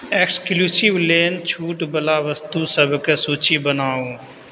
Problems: none marked